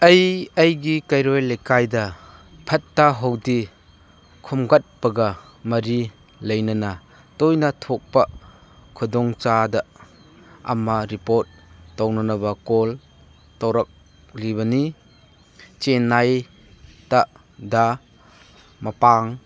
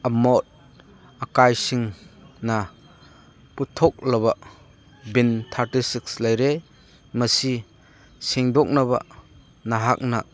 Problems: none marked